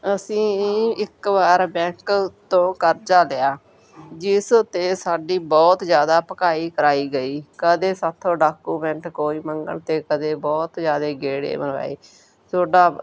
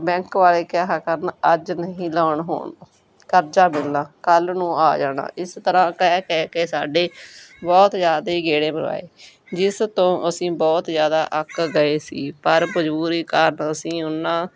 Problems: background sounds at intervals